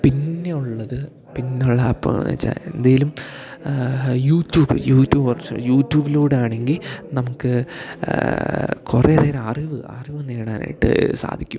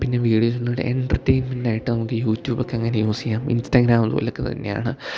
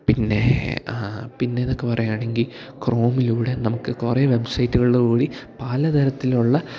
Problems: none marked